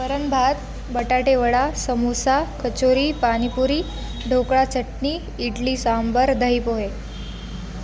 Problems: constant background noise